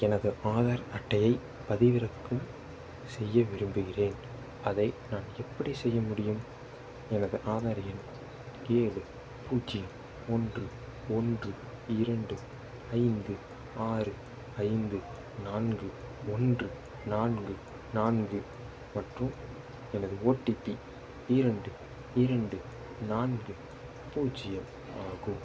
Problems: constant background noise, low volume